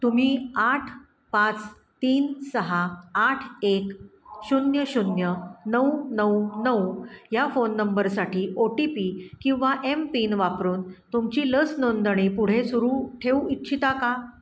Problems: none marked